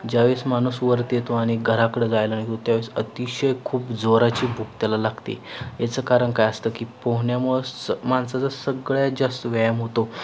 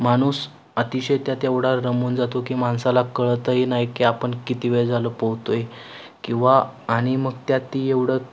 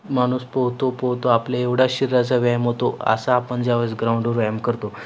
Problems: none marked